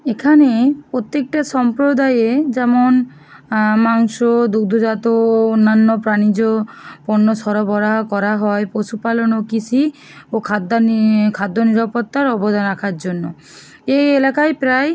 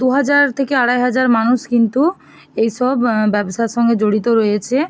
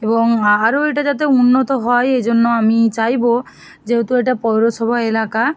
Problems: none marked